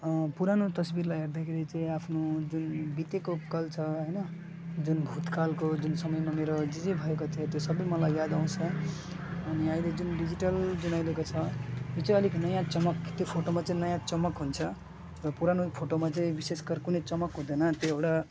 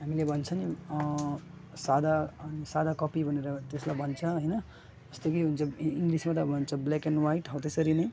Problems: constant background noise